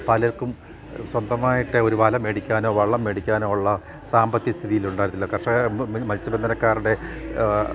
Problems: constant background noise